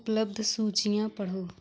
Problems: background sounds at intervals